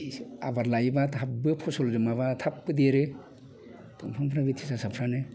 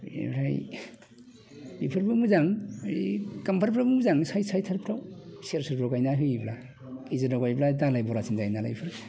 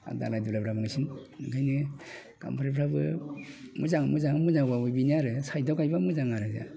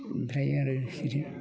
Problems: constant background noise